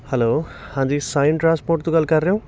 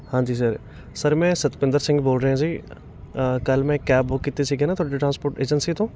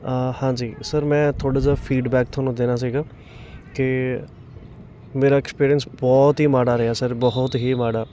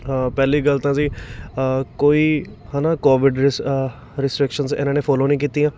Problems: constant background noise, background conversations at intervals